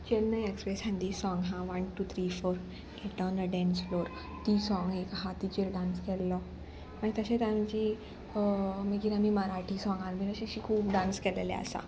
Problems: none marked